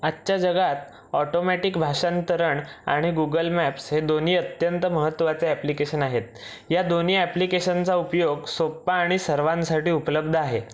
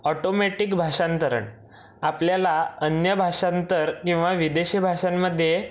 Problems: background sounds at intervals